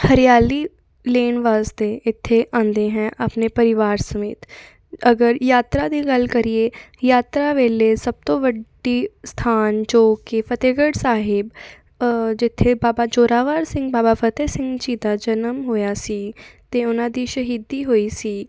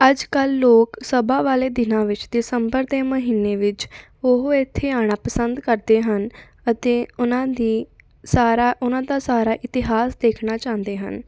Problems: constant background noise